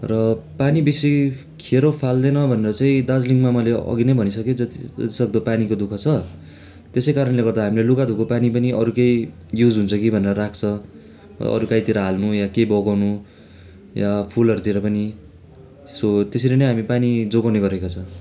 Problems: constant background noise